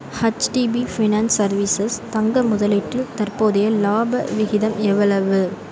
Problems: background sounds at intervals